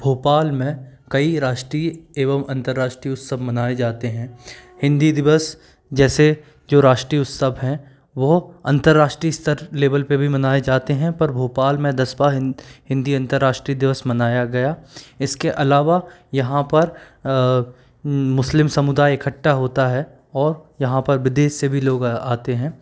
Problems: background sounds at intervals